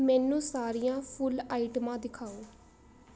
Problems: constant background noise